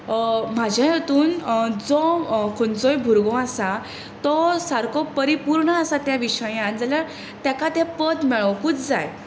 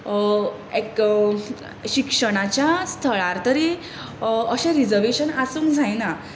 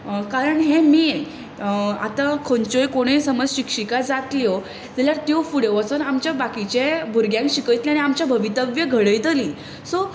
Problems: constant background noise